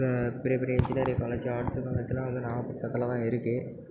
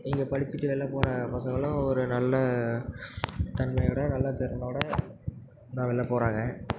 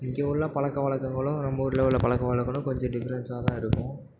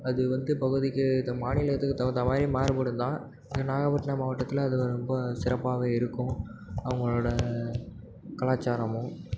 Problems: constant background noise, background conversations at intervals